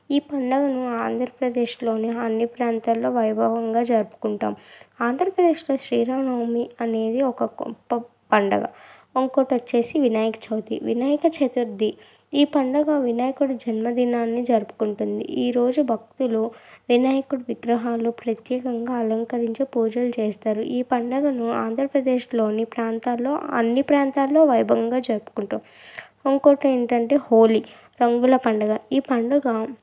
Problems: none marked